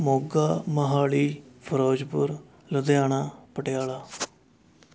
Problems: background sounds at intervals